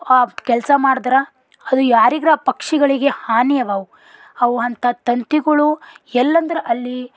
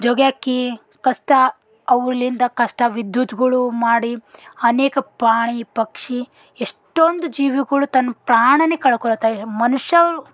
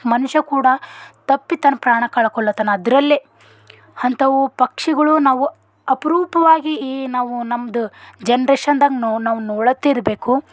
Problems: none marked